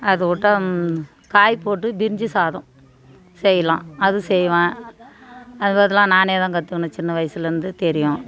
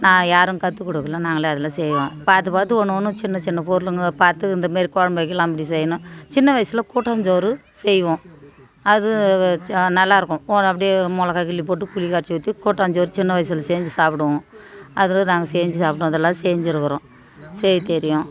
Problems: continuous background conversations